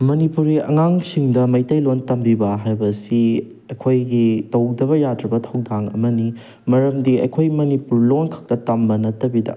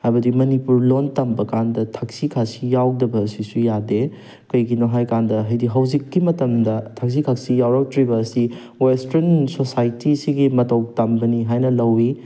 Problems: none marked